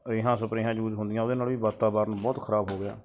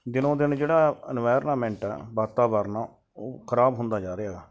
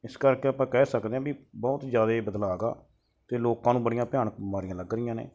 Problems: none marked